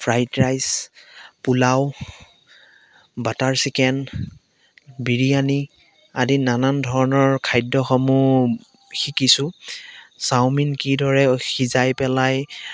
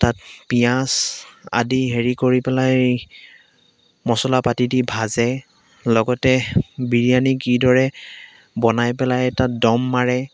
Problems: none marked